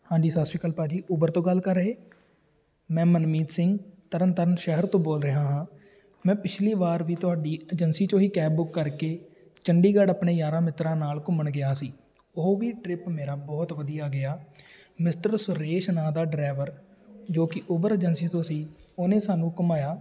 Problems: background sounds at intervals